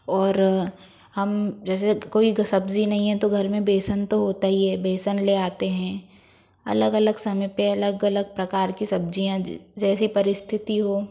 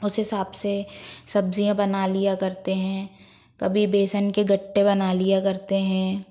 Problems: background sounds at intervals